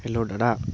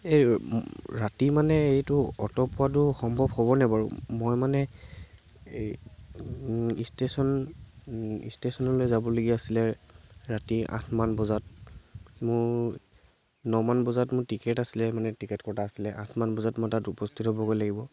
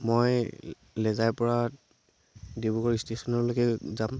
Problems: constant background noise, background conversations at intervals